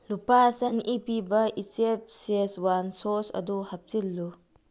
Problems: low volume